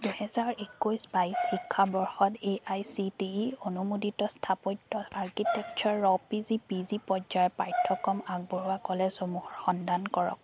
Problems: constant background noise